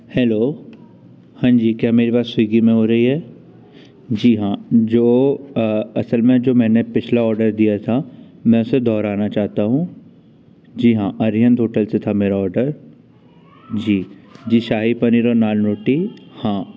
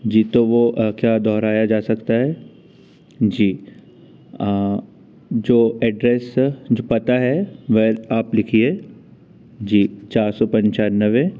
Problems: none marked